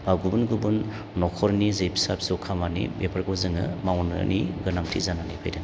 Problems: none marked